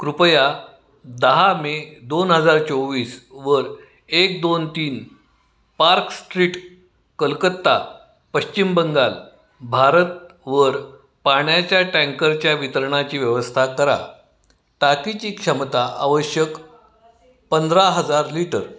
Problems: background sounds at intervals